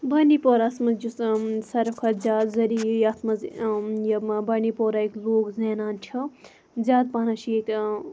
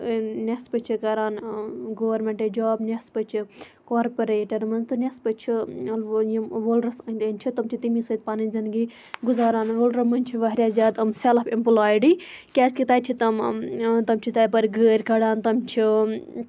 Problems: background sounds at intervals